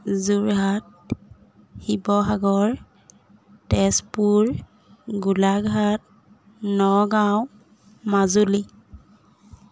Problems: none marked